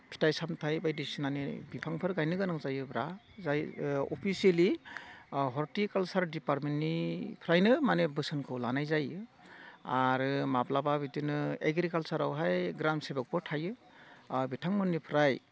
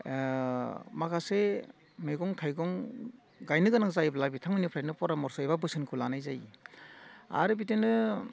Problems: constant background noise